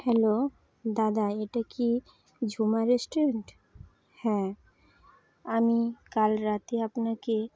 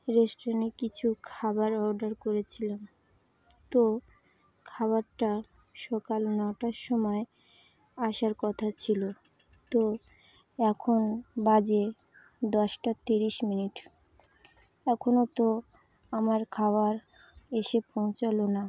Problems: constant background noise, continuous background conversations